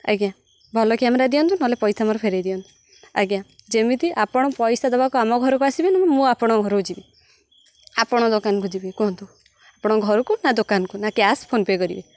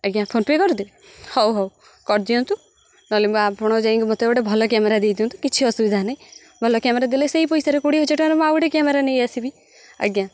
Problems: none marked